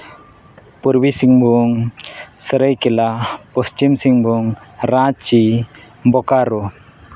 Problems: background sounds at intervals